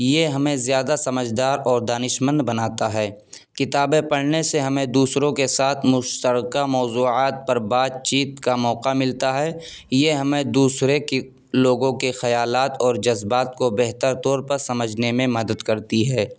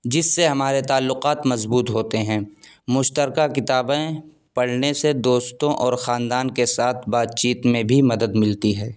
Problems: background sounds at intervals